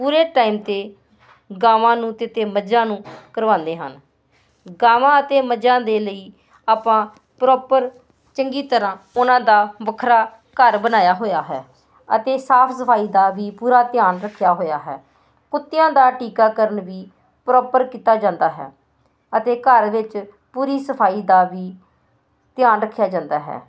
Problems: constant background noise